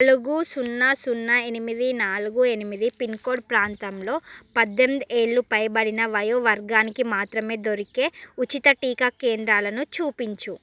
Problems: none marked